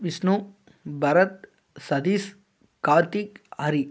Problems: constant background noise